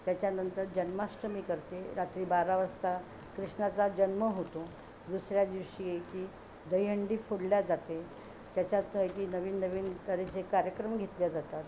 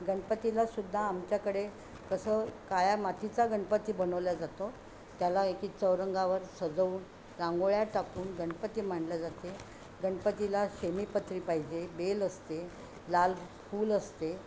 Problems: none marked